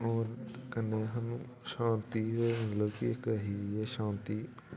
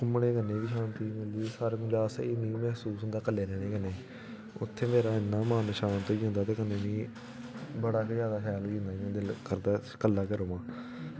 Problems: background sounds at intervals